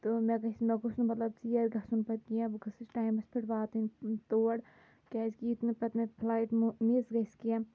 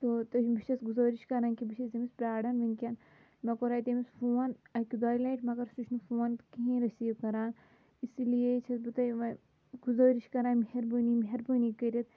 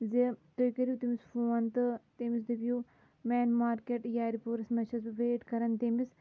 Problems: constant background noise